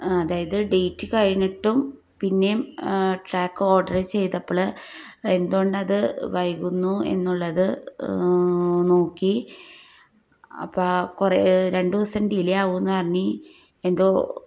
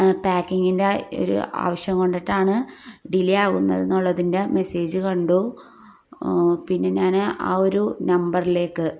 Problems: low volume